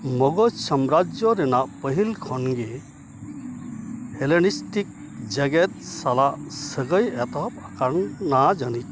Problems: constant background noise